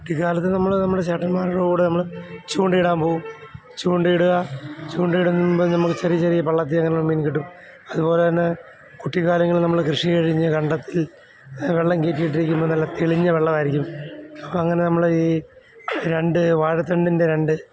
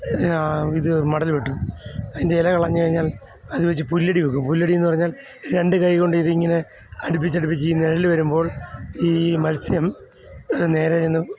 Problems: background sounds at intervals